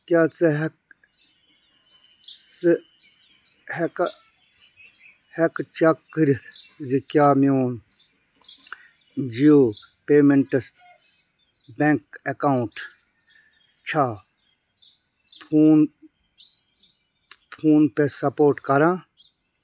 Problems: none marked